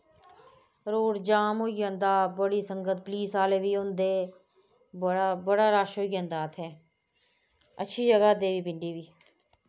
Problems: none marked